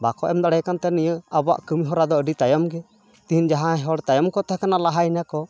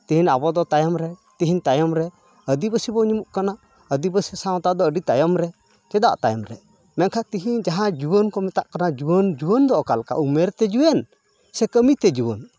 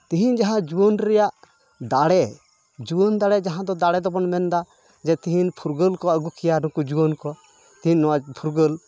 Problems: constant background noise, continuous background conversations